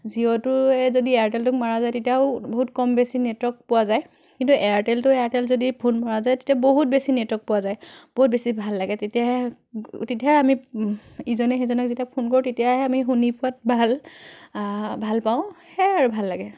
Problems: none marked